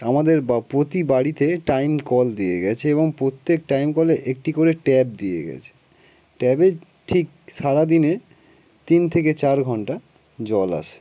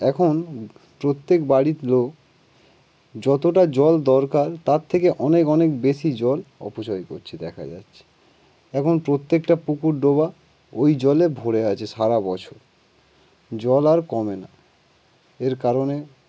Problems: none marked